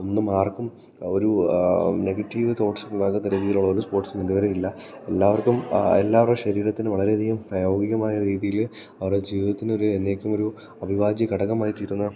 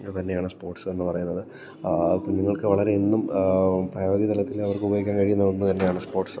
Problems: none marked